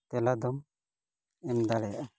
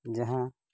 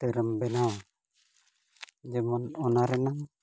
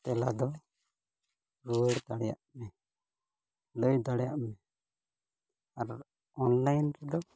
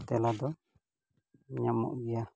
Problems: none marked